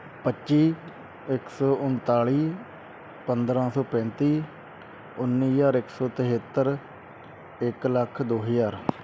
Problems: constant background noise